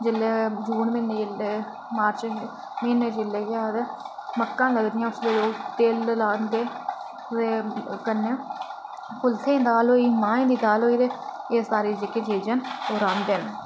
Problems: constant background noise